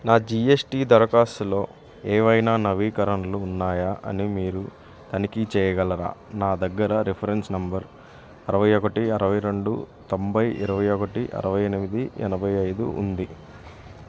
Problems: none marked